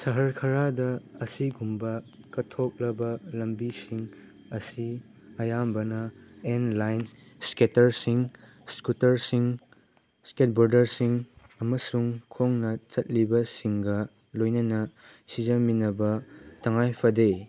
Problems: background sounds at intervals